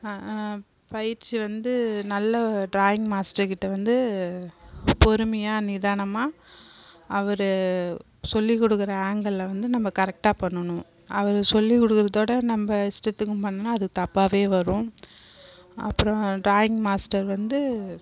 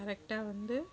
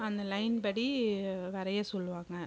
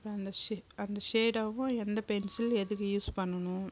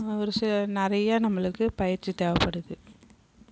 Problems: continuous background conversations